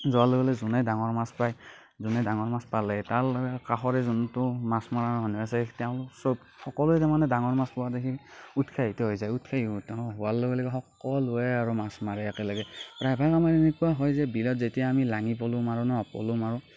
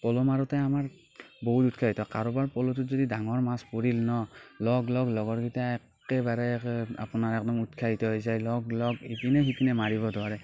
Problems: none marked